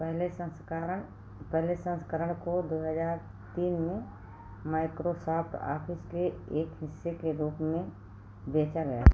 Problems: constant background noise